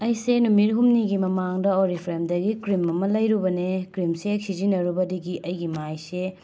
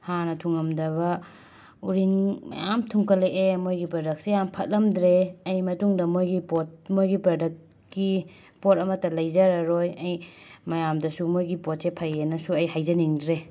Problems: none marked